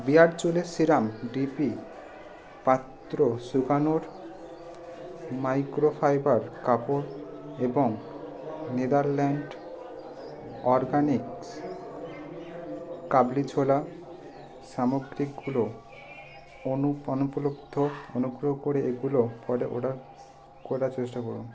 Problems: constant background noise